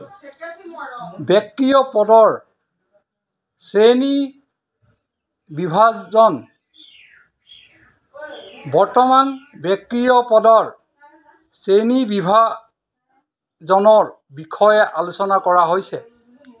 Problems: background conversations at intervals